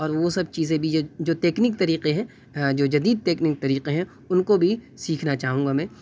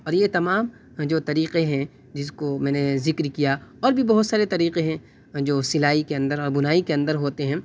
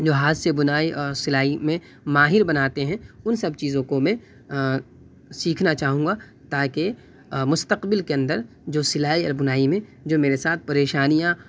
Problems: constant background noise